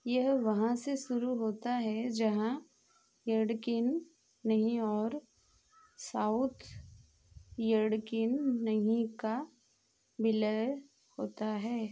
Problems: none marked